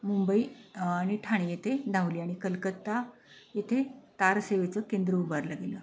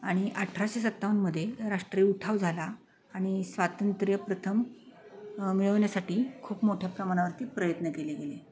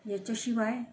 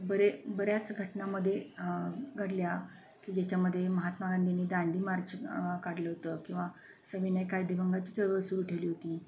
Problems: constant background noise, continuous background conversations